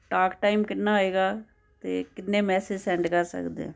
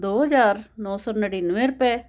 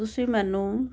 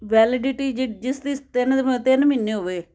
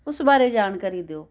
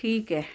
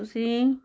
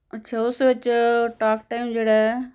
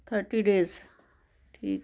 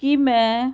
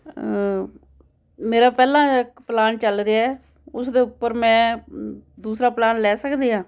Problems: none marked